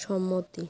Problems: constant background noise